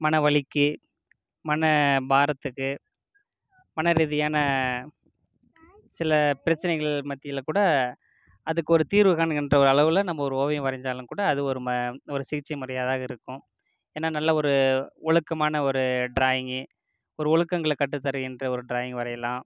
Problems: low volume